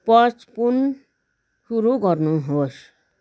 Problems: none marked